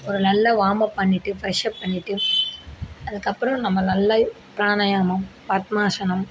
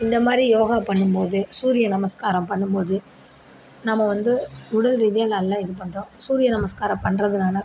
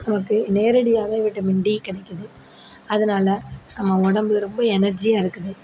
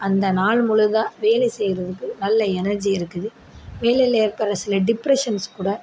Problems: background sounds at intervals